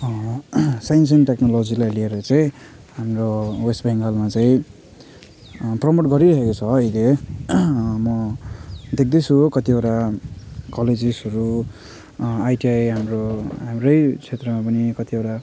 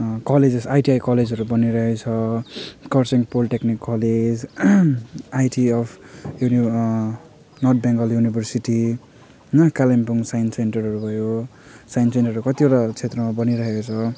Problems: background conversations at intervals